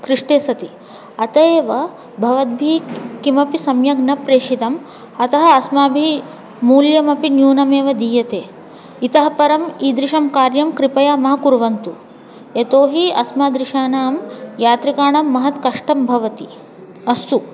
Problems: constant background noise, continuous background conversations